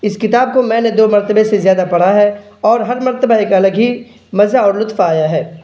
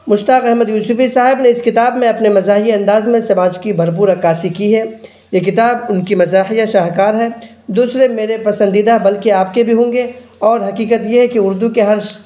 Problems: none marked